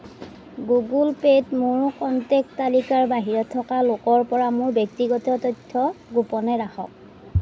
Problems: background sounds at intervals